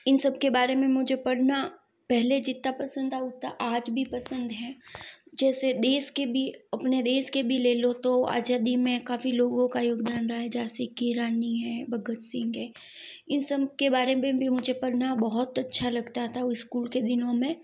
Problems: background sounds at intervals